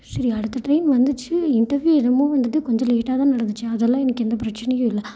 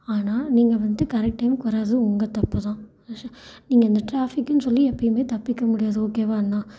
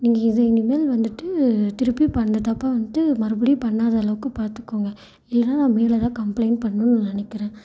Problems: echo